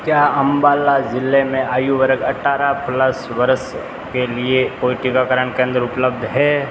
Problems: constant background noise